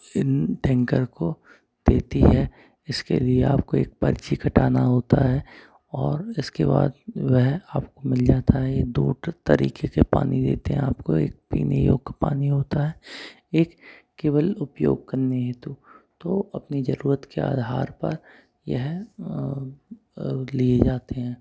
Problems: background sounds at intervals